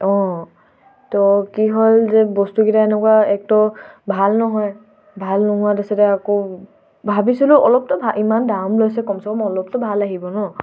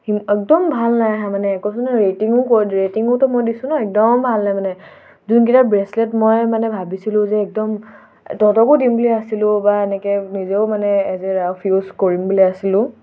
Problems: background sounds at intervals, background conversations at intervals